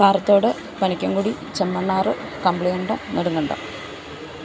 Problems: constant background noise